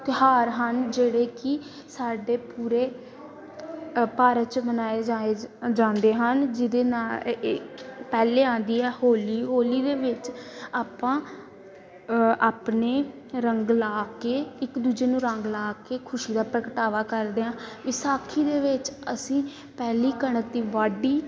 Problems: constant background noise, continuous background conversations